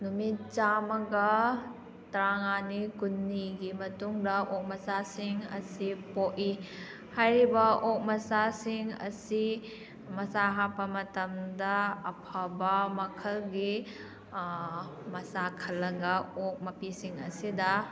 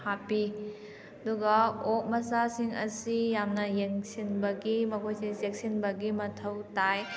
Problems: background conversations at intervals